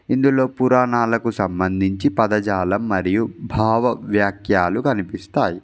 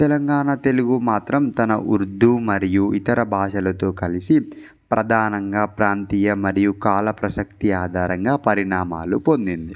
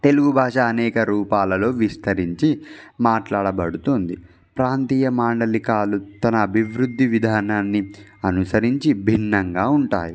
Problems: background sounds at intervals